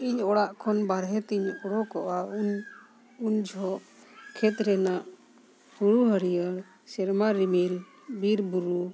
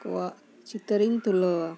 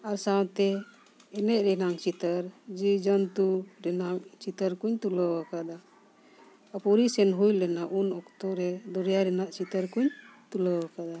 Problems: constant background noise